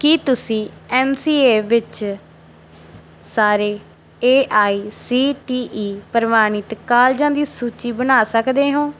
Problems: background sounds at intervals